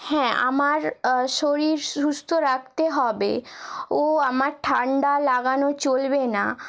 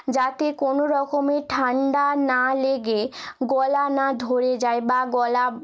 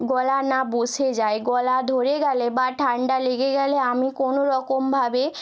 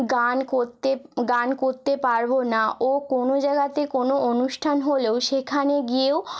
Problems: none marked